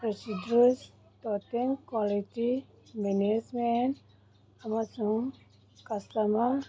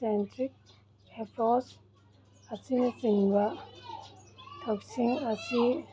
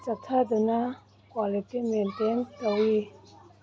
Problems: background sounds at intervals